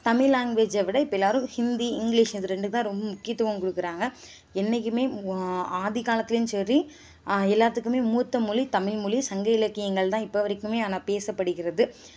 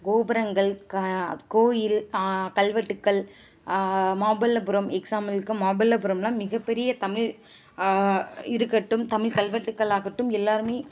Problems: constant background noise